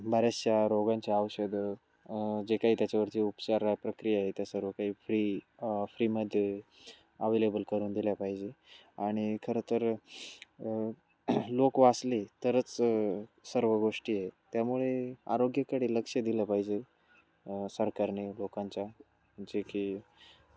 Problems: constant background noise, background conversations at intervals, low volume